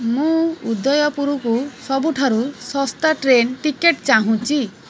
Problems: constant background noise